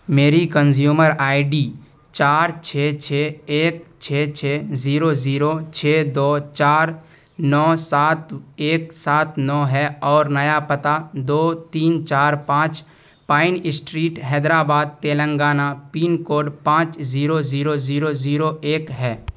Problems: constant background noise